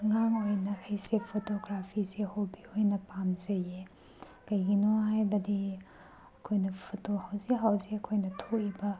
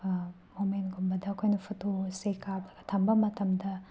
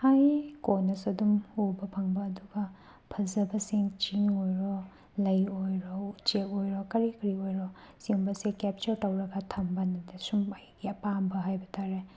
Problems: background sounds at intervals